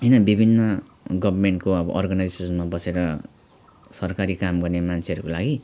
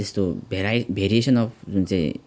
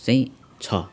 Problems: none marked